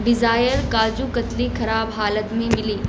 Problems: constant background noise